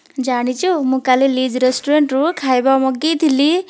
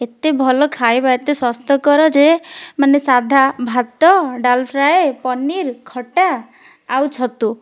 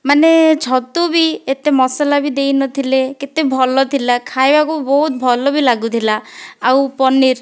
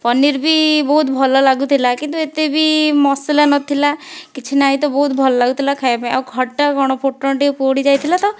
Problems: background sounds at intervals